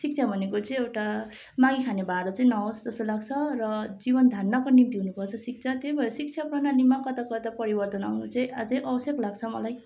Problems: none marked